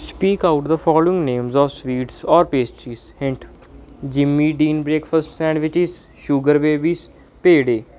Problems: background sounds at intervals